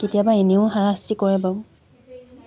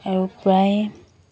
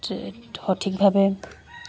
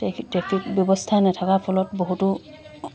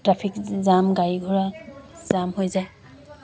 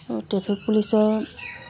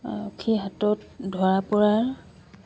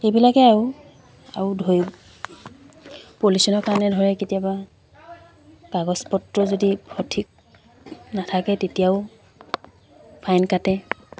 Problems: constant background noise, background conversations at intervals